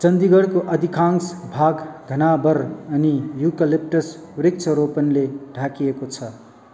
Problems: constant background noise